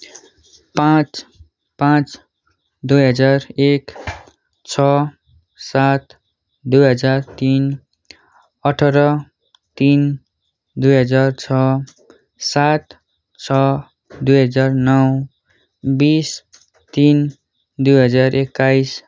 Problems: background sounds at intervals